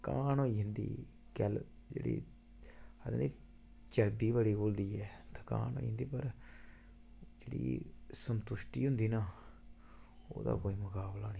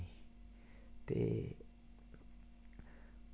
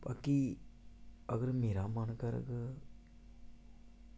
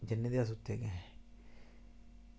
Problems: constant background noise, low volume